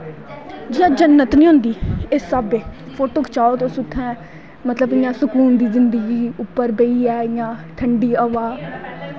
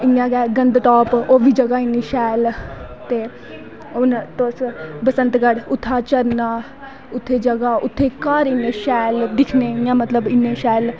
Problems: background sounds at intervals